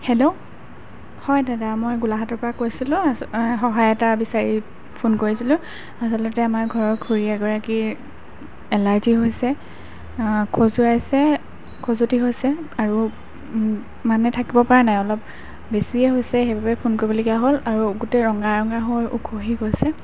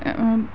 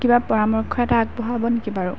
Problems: none marked